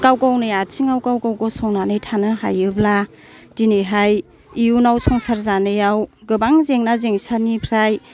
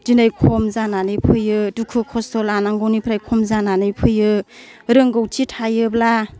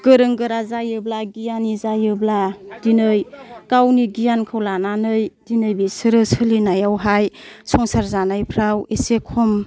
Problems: none marked